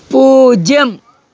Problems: none marked